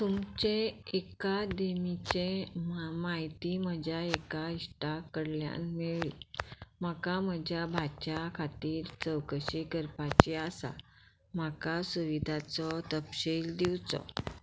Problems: background sounds at intervals